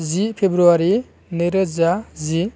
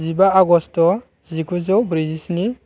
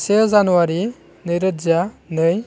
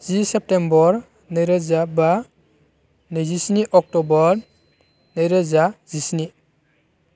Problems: none marked